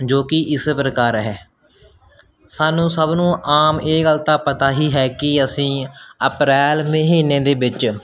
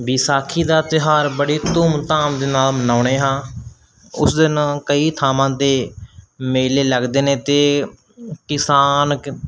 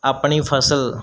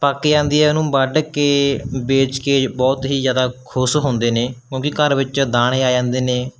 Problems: none marked